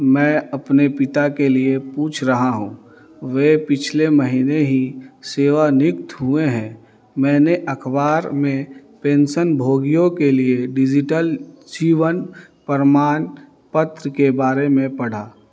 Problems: none marked